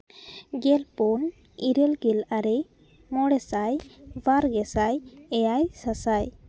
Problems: constant background noise, background conversations at intervals